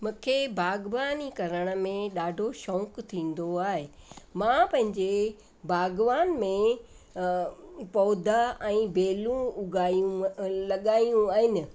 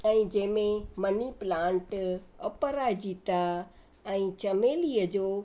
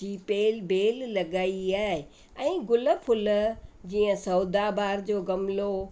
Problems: constant background noise, echo